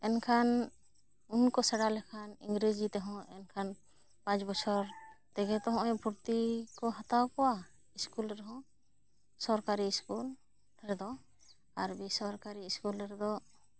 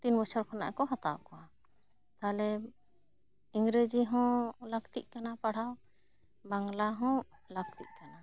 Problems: none marked